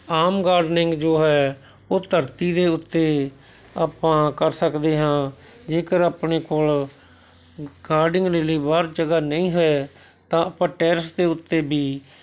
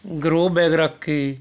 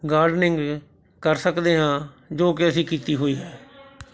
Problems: background conversations at intervals